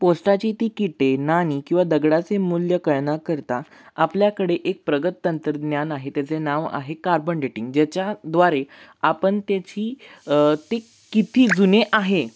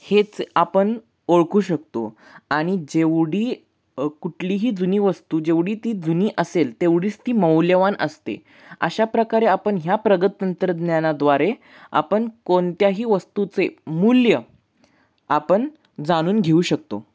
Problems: none marked